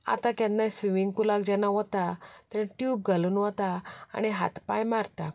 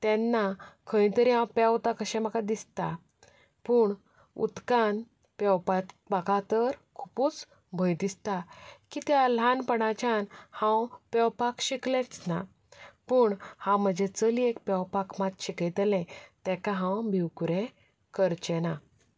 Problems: background sounds at intervals